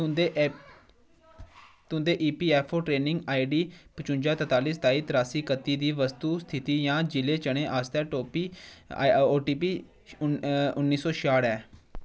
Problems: none marked